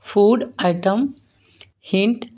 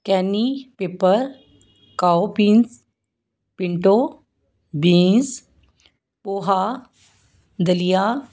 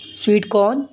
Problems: background sounds at intervals